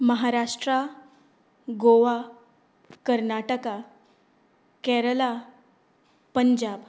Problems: background sounds at intervals